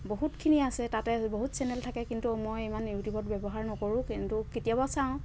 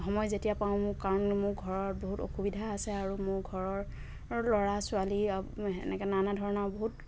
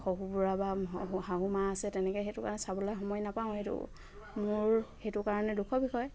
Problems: constant background noise